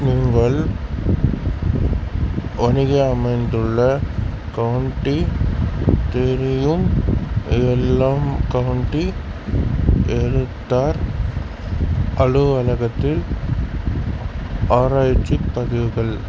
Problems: constant background noise